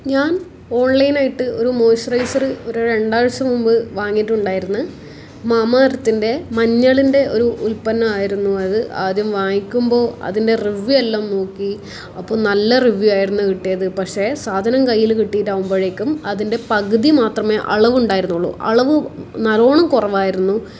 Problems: none marked